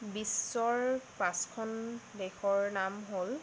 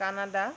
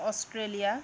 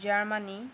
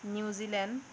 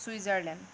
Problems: constant background noise